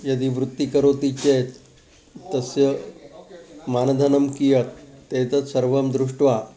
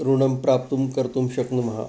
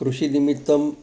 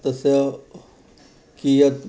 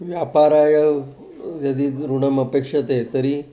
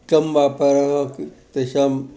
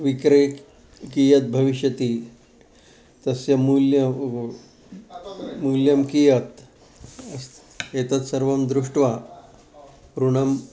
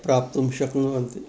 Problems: constant background noise, continuous background conversations